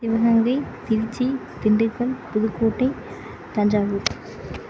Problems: constant background noise